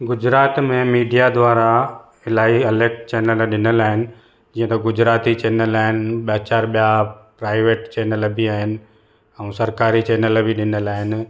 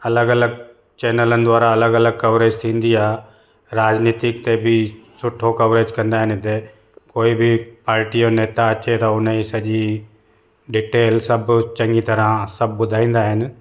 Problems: echo